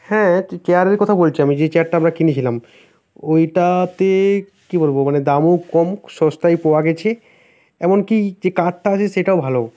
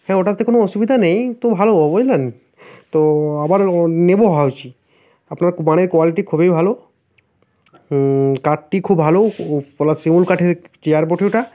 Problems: constant background noise